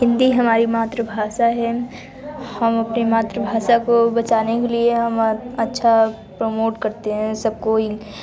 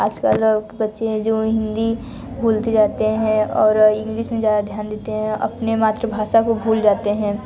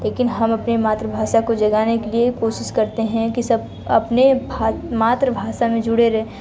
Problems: none marked